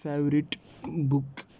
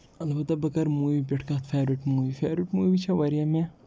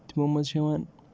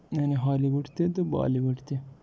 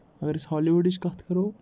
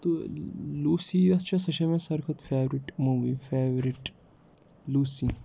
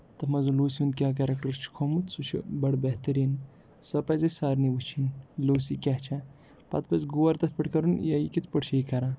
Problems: background sounds at intervals